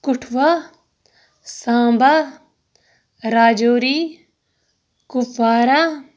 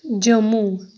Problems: background sounds at intervals